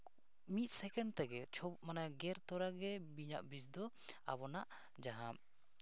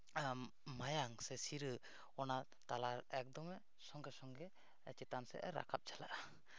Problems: low volume